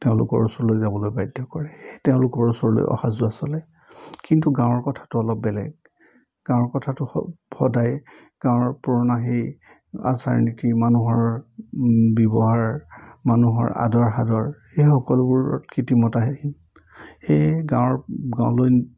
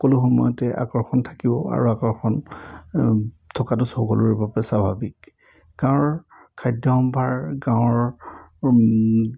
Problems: none marked